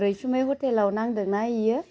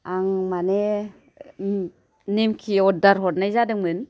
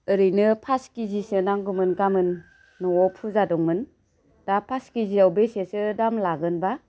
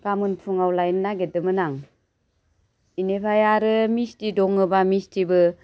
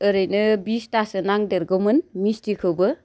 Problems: constant background noise